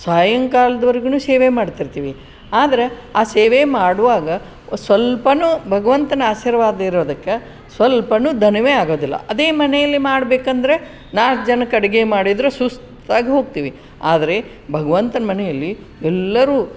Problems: background sounds at intervals